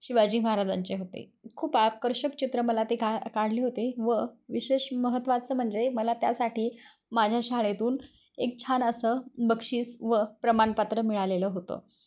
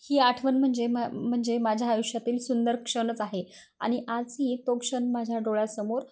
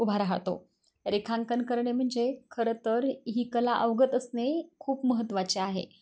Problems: none marked